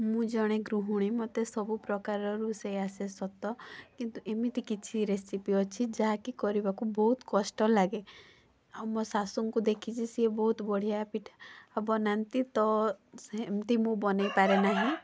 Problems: constant background noise